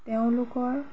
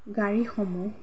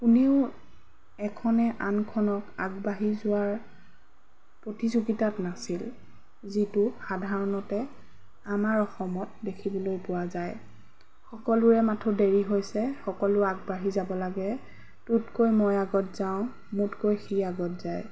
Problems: background sounds at intervals